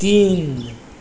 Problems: background sounds at intervals